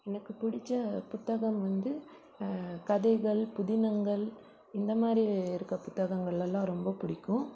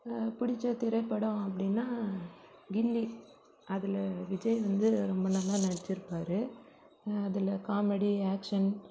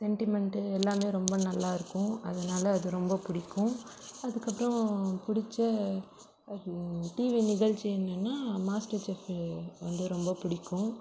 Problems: low volume